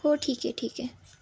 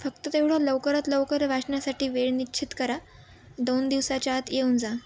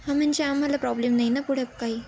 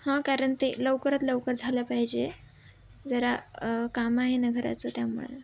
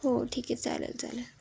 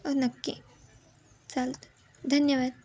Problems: background sounds at intervals, background conversations at intervals